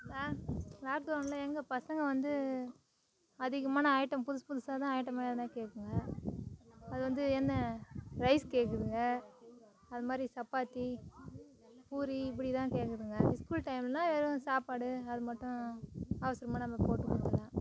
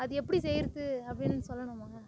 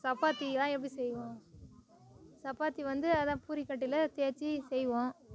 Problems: background conversations at intervals